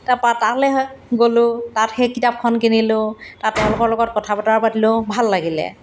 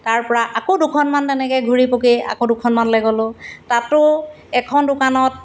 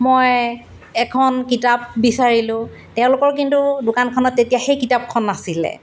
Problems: none marked